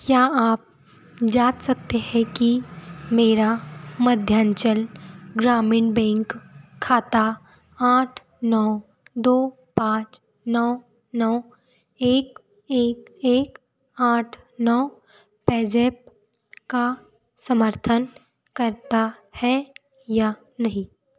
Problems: background sounds at intervals